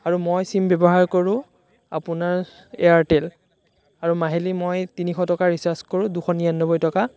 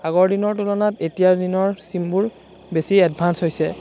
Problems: none marked